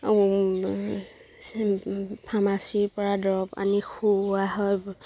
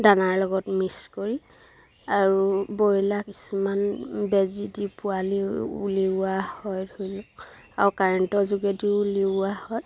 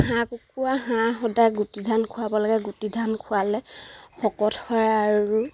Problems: none marked